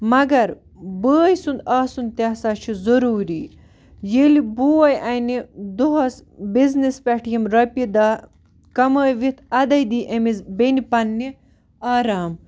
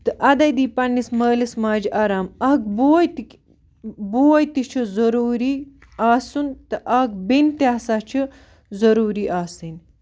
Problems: background sounds at intervals